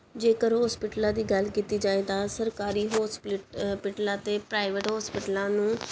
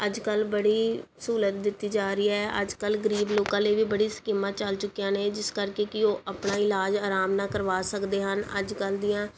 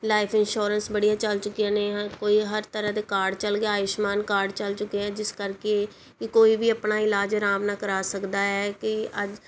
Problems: background sounds at intervals